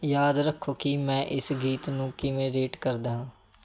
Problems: none marked